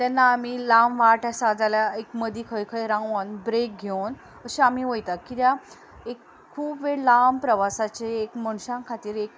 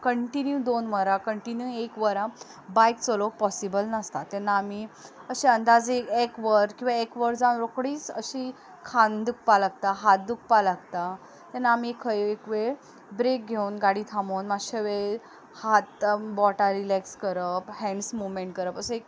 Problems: background sounds at intervals, background conversations at intervals